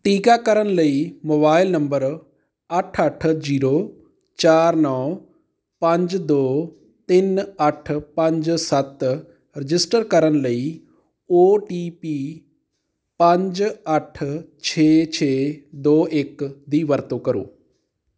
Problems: background sounds at intervals